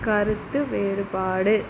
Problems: constant background noise